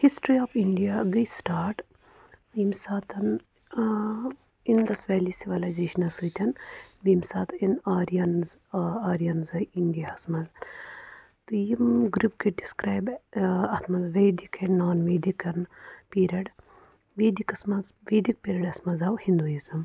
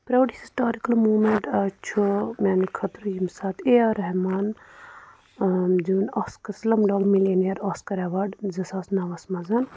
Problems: none marked